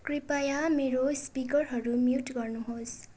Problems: constant background noise